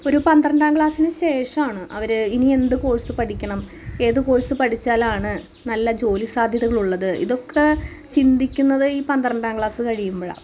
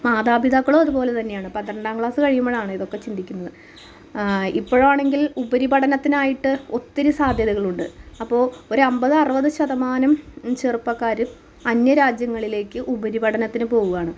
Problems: constant background noise